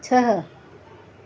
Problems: constant background noise, echo